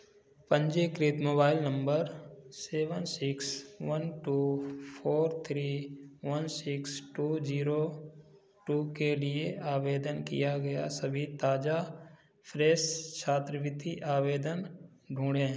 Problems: none marked